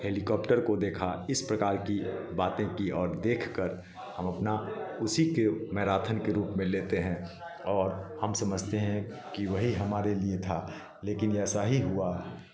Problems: continuous background conversations